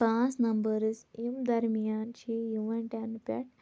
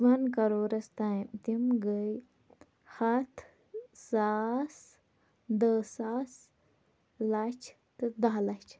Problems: constant background noise, low volume